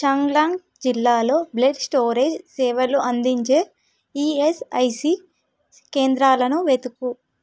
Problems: none marked